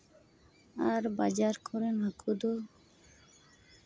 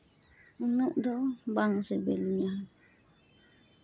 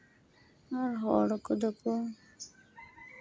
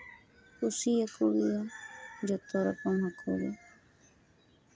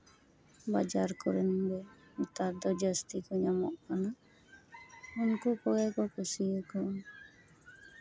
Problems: background sounds at intervals